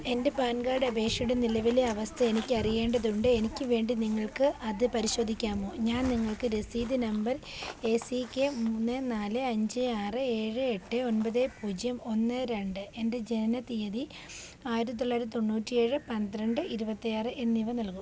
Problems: background sounds at intervals, background conversations at intervals